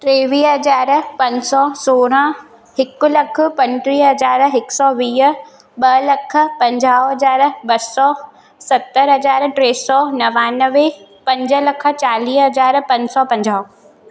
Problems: constant background noise, echo